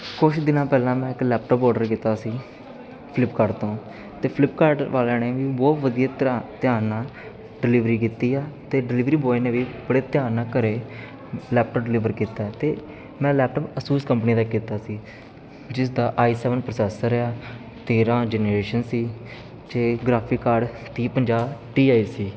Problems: constant background noise